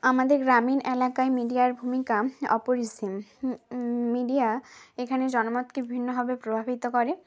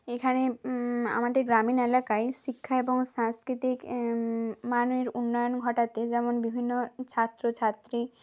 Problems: none marked